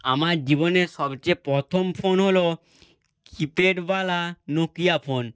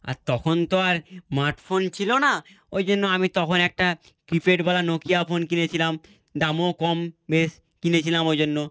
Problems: none marked